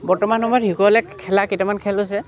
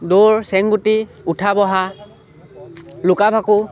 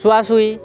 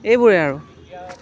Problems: none marked